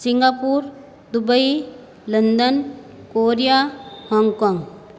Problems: constant background noise, background conversations at intervals